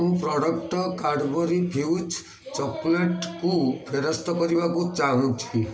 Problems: constant background noise, continuous background conversations